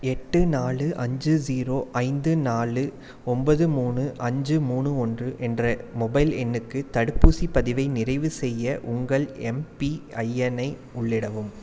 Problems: background sounds at intervals